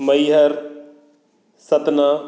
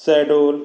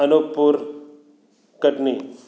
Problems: none marked